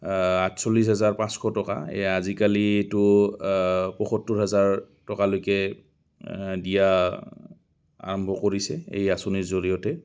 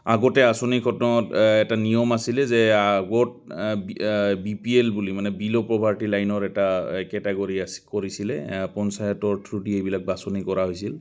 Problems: constant background noise, background conversations at intervals